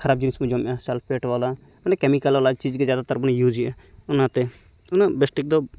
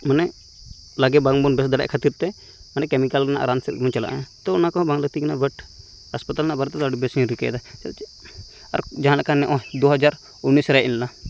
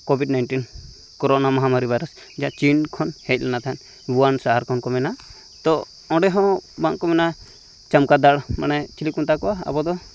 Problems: background sounds at intervals